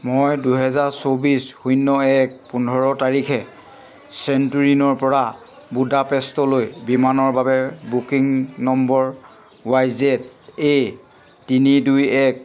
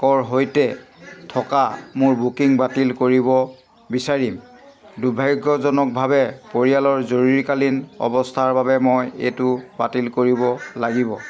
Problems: none marked